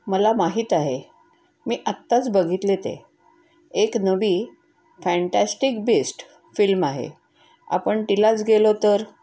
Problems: background sounds at intervals